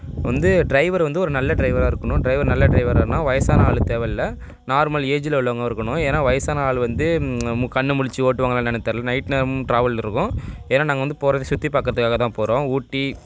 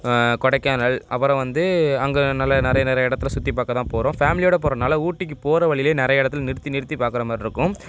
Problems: none marked